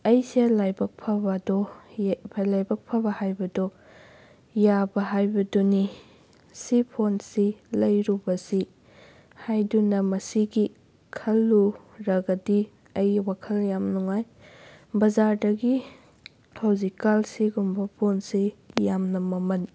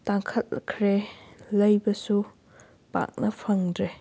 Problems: none marked